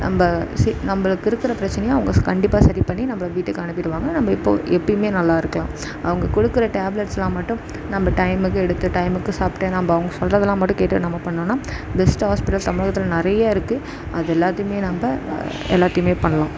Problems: constant background noise